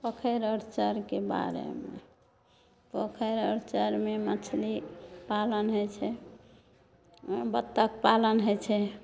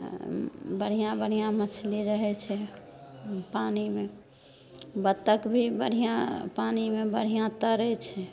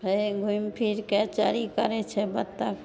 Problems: none marked